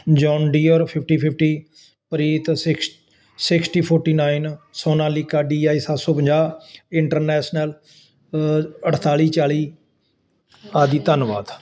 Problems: none marked